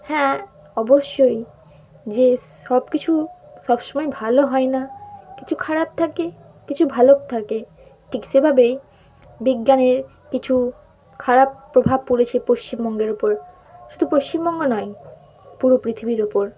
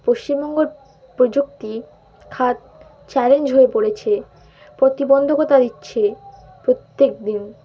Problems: constant background noise